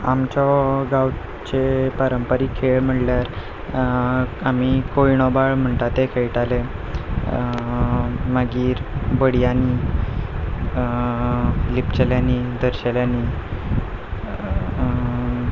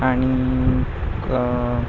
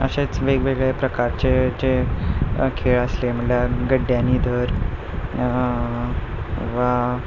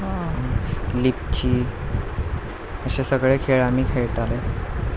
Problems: background sounds at intervals, background conversations at intervals